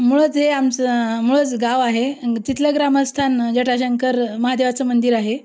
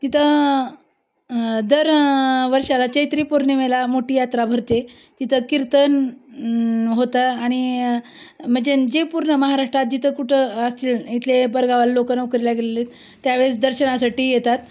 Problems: none marked